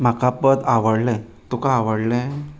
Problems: background sounds at intervals